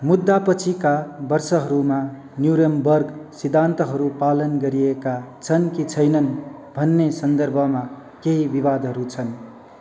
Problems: constant background noise